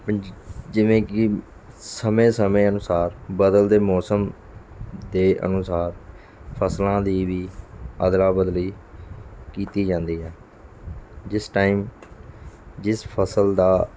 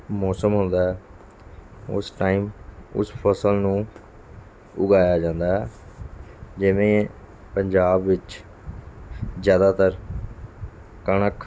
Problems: none marked